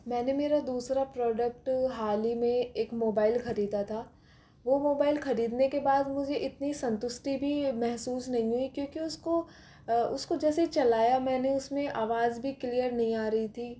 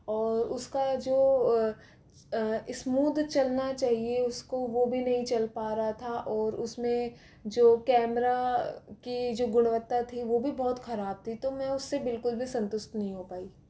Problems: constant background noise